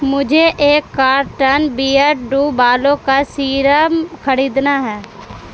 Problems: constant background noise